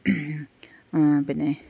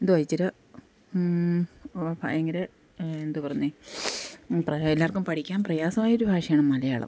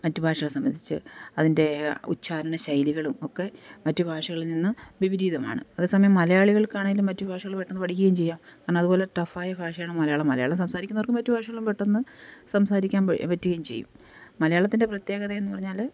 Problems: background sounds at intervals